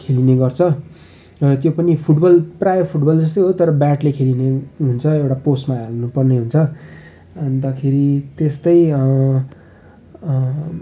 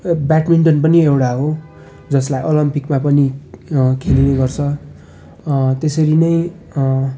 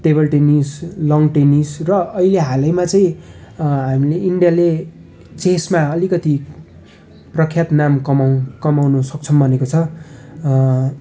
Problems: none marked